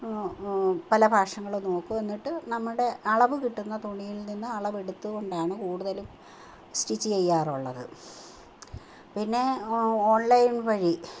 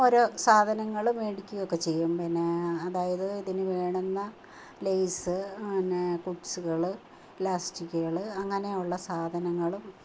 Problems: none marked